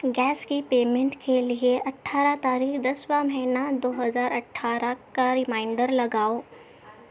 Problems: constant background noise